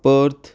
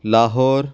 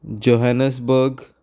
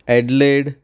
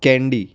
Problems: constant background noise